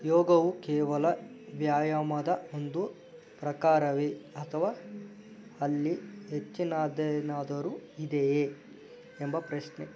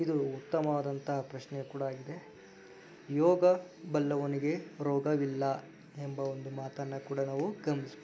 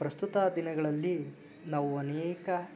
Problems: background sounds at intervals